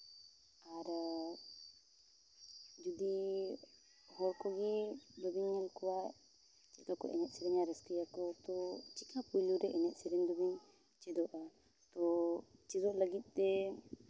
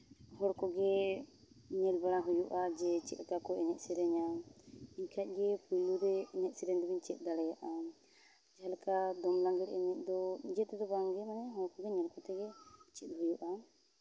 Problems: low volume